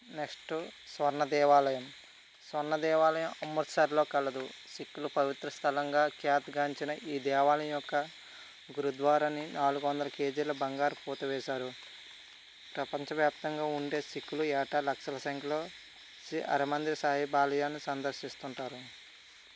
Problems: constant background noise